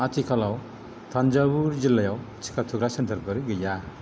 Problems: background sounds at intervals